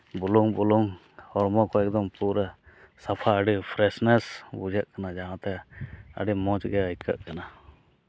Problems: none marked